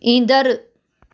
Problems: none marked